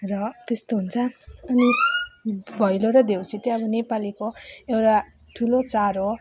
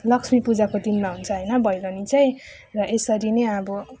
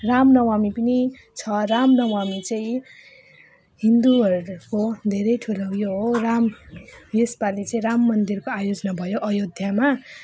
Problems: none marked